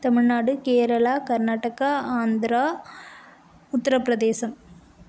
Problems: none marked